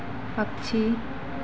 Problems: constant background noise